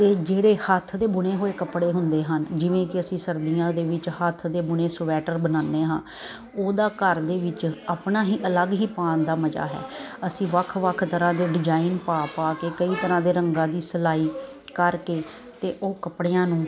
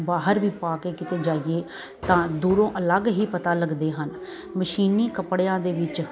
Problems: none marked